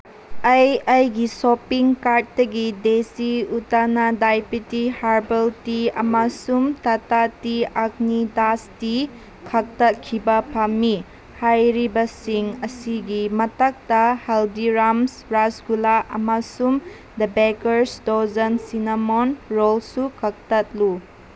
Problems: constant background noise